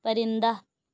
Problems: none marked